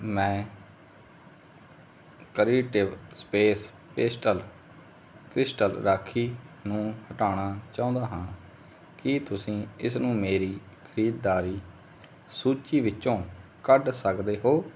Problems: none marked